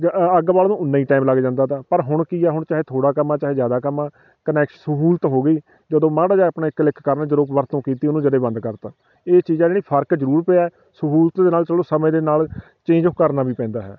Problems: constant background noise